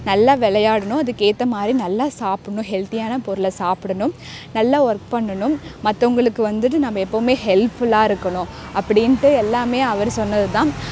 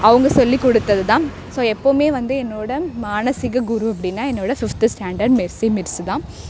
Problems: background sounds at intervals, background conversations at intervals